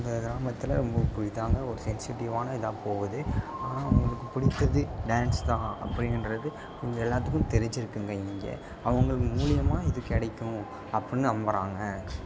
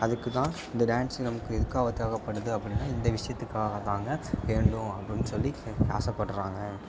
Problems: background sounds at intervals, low volume